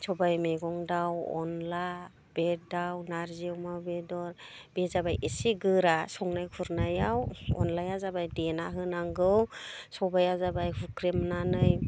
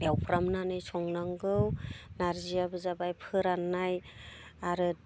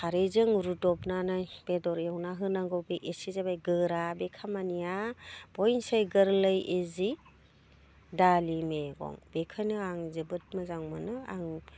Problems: none marked